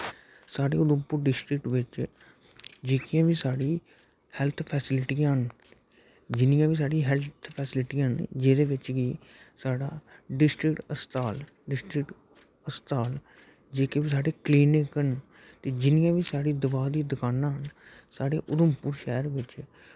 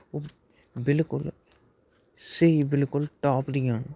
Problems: constant background noise, low volume